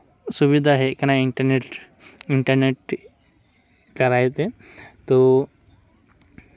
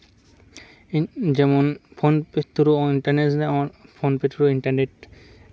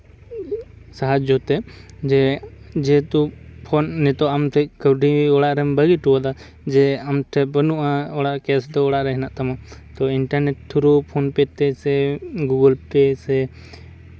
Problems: none marked